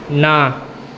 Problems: constant background noise